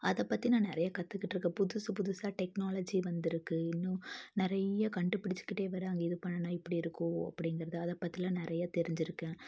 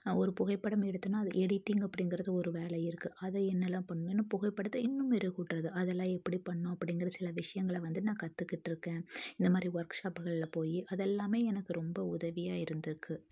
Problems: none marked